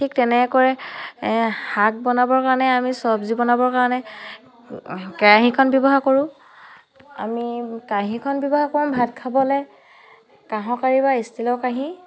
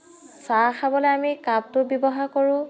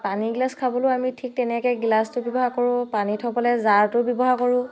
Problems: continuous background conversations